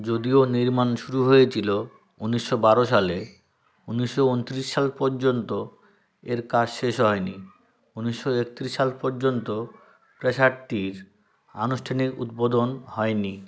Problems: background sounds at intervals, background conversations at intervals